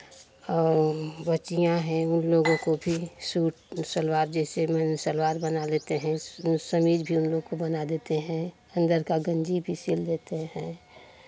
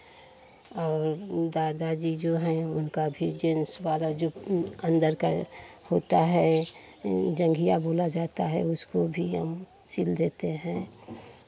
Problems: constant background noise, continuous background conversations